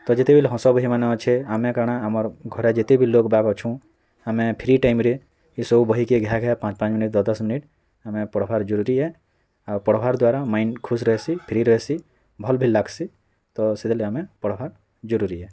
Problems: constant background noise, continuous background conversations